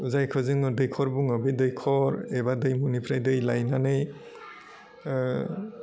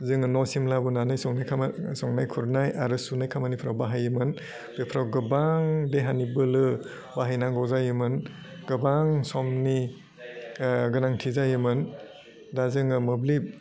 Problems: low volume